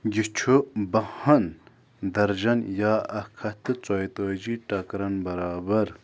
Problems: none marked